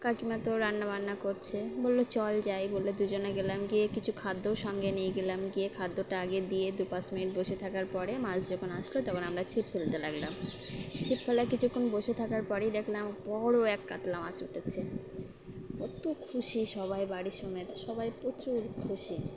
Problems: constant background noise